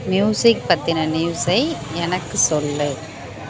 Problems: background sounds at intervals